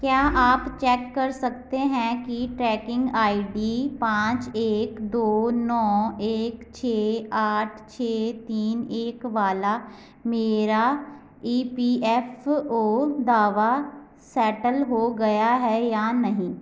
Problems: background sounds at intervals